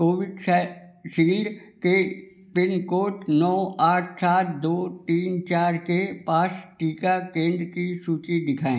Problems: background sounds at intervals